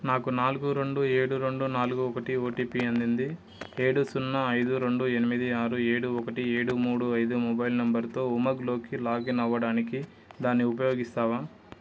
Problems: none marked